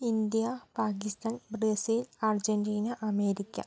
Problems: low volume